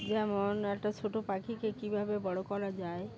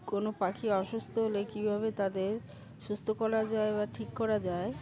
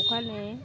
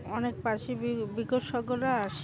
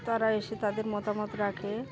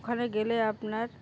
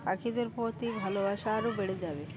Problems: constant background noise, continuous background conversations